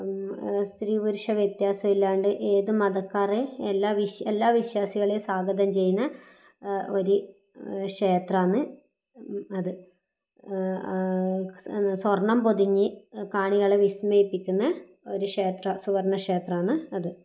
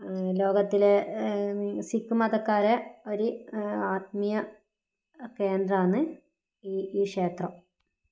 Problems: low volume